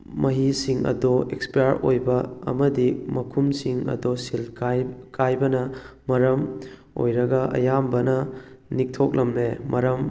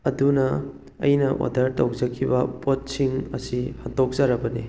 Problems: background sounds at intervals